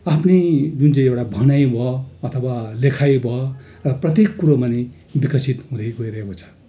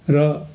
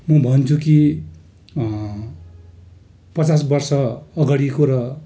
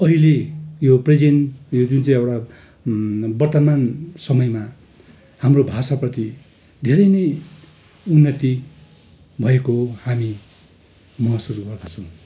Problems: none marked